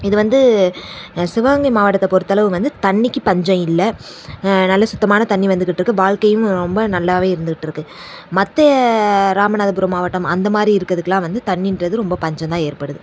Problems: none marked